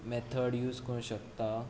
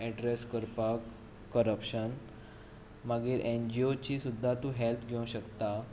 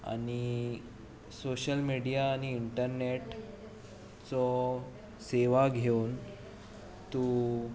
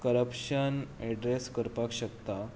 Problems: none marked